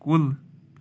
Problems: none marked